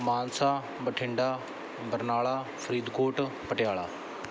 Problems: background sounds at intervals